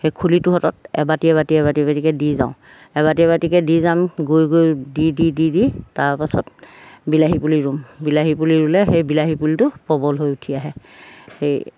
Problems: background sounds at intervals